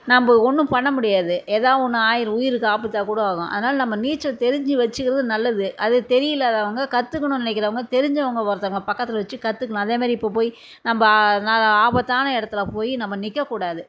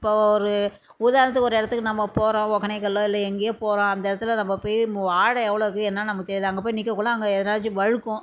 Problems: none marked